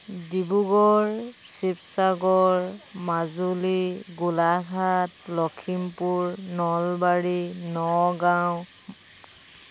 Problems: constant background noise